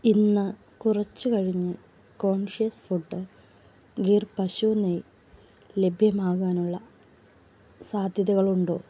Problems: low volume